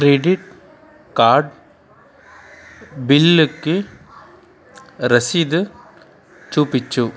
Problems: constant background noise, continuous background conversations